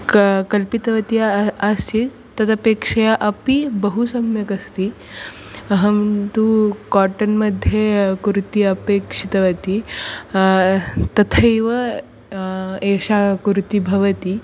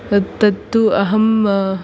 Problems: constant background noise